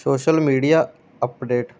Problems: background sounds at intervals